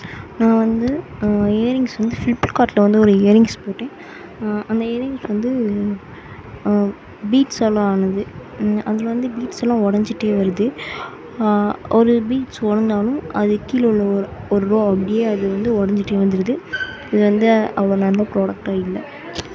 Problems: constant background noise